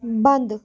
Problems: background sounds at intervals